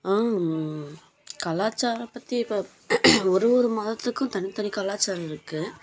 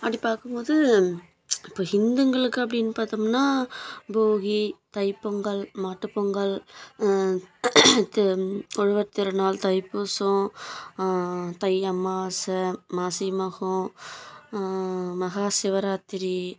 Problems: background sounds at intervals